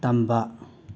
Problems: none marked